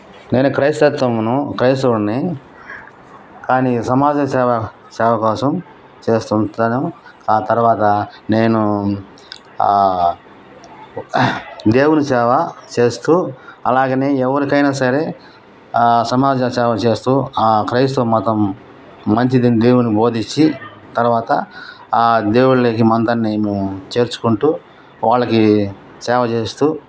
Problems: background sounds at intervals